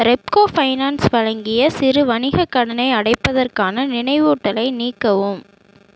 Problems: none marked